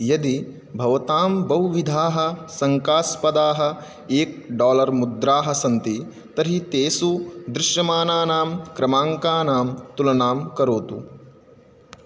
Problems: none marked